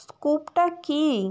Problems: constant background noise